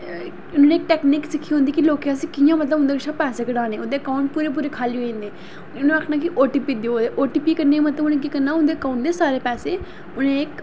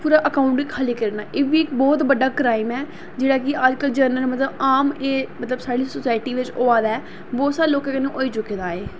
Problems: constant background noise